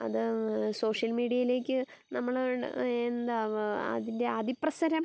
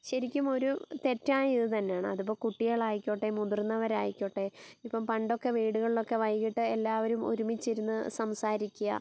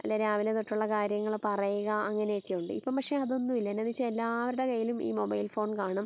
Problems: background sounds at intervals